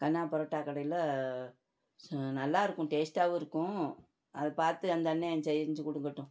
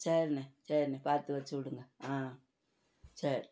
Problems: none marked